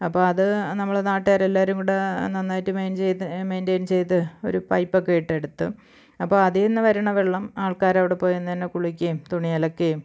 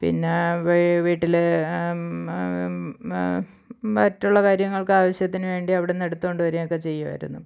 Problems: none marked